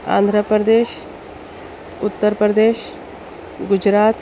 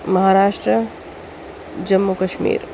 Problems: constant background noise, background conversations at intervals, low volume